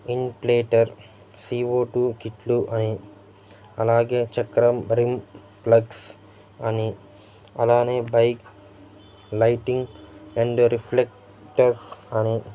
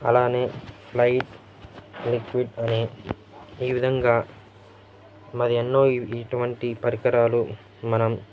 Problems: constant background noise, background conversations at intervals